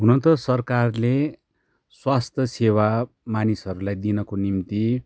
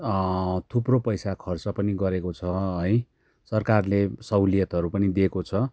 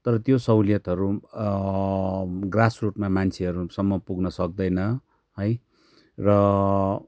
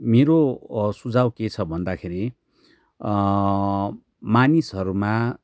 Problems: background sounds at intervals